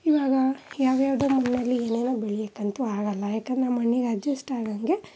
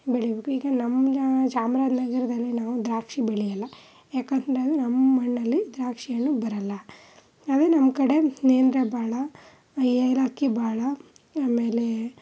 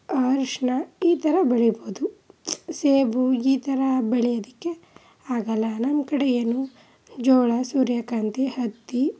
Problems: background sounds at intervals